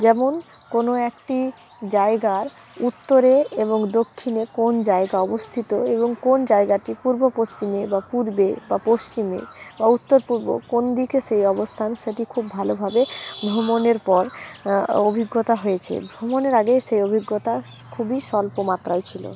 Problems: background sounds at intervals